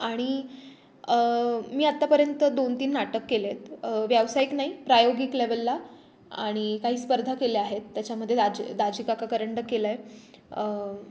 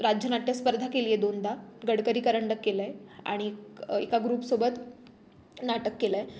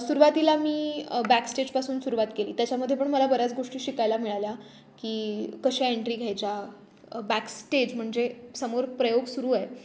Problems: background sounds at intervals